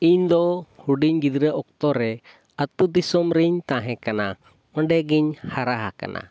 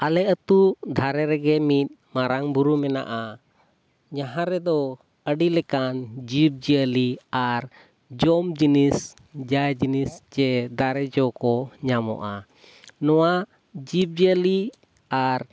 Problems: background sounds at intervals